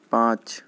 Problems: none marked